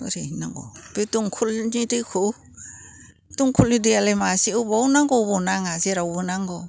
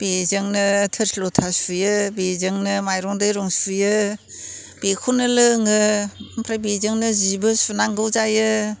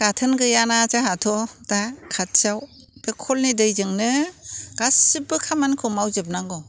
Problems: constant background noise